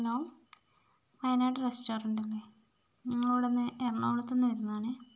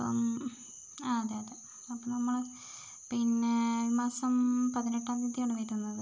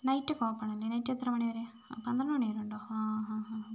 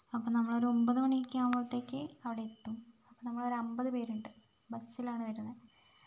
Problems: low volume